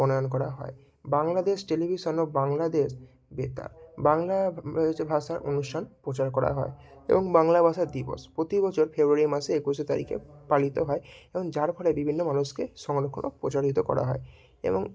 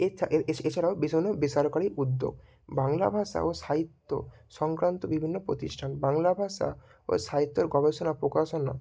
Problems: none marked